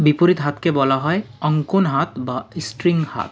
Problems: constant background noise